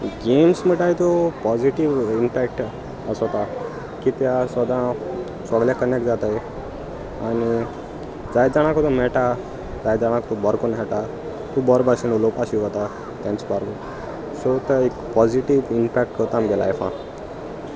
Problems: constant background noise, background conversations at intervals